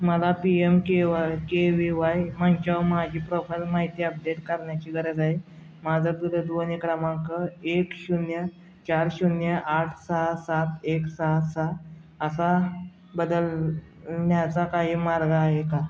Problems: none marked